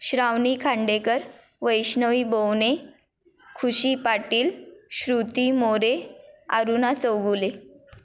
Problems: none marked